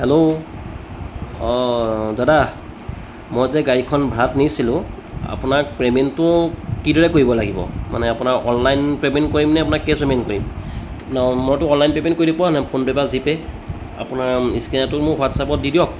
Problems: constant background noise, background conversations at intervals